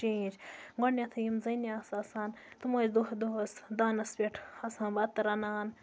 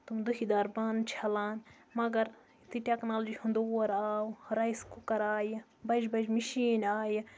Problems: background sounds at intervals